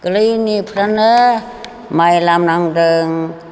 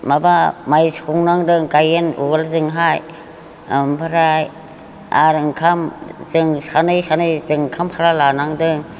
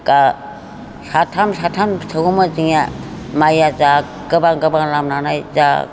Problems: none marked